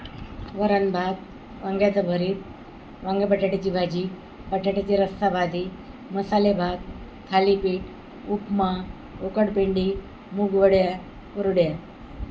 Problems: none marked